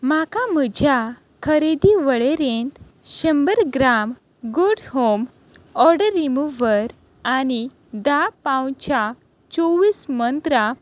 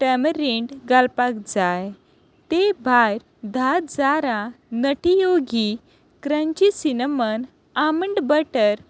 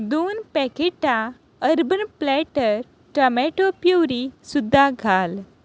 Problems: constant background noise